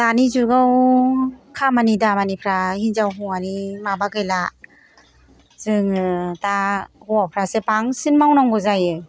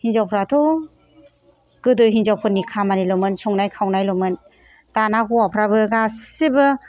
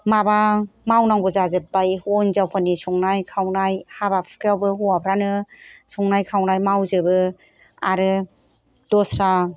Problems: background sounds at intervals